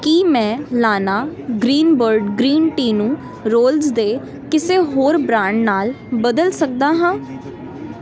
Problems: none marked